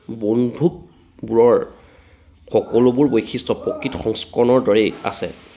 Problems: background sounds at intervals, background conversations at intervals